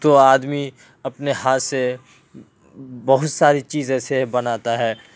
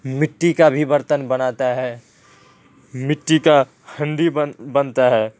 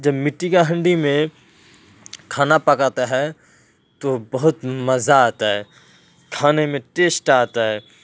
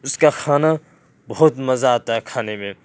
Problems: background sounds at intervals